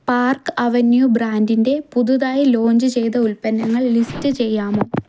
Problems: none marked